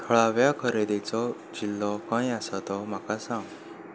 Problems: background sounds at intervals